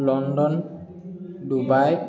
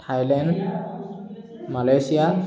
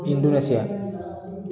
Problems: continuous background conversations